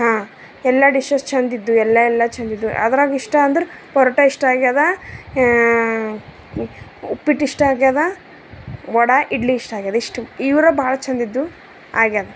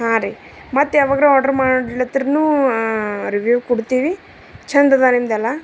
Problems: background sounds at intervals